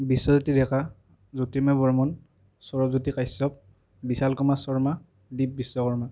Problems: none marked